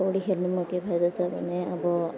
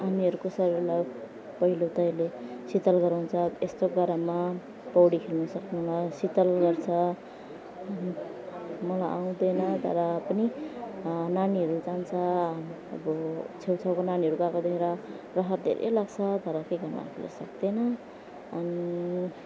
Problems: none marked